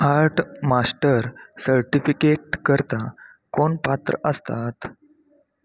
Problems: constant background noise, background conversations at intervals